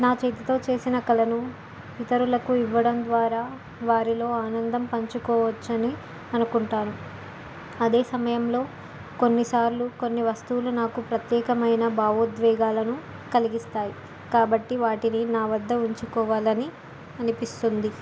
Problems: constant background noise